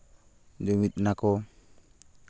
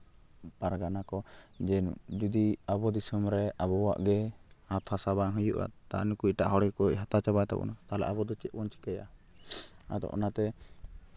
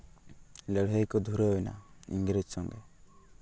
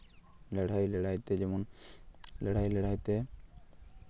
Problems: constant background noise